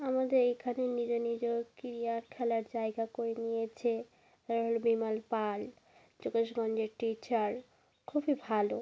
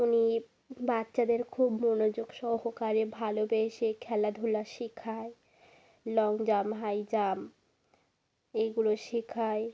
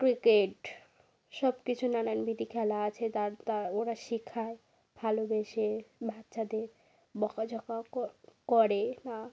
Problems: continuous background conversations